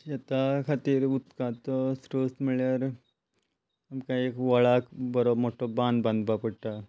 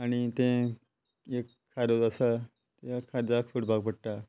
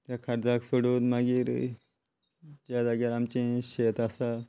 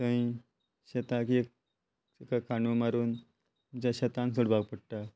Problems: constant background noise